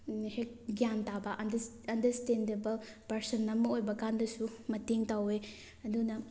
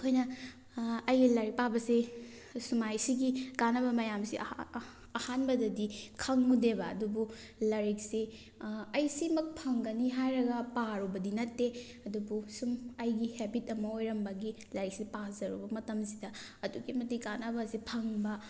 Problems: background sounds at intervals